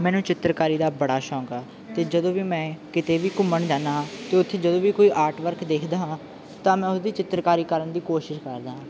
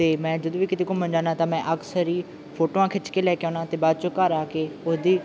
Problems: none marked